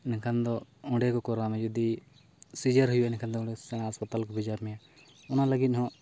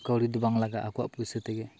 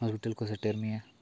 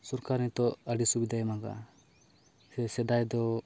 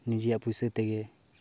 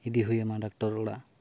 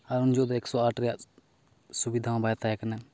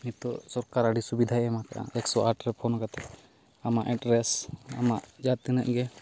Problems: background sounds at intervals